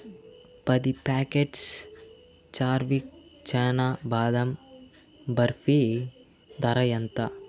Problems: constant background noise